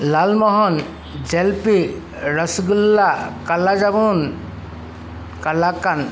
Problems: background sounds at intervals